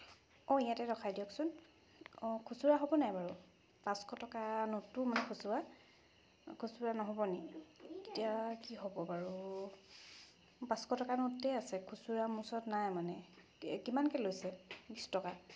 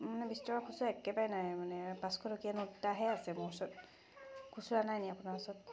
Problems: background sounds at intervals